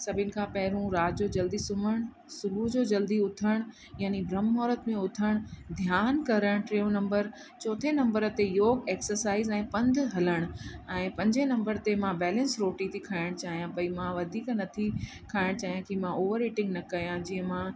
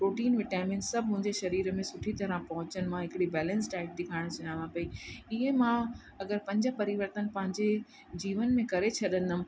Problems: constant background noise, echo